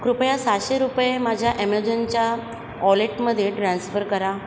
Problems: constant background noise, background conversations at intervals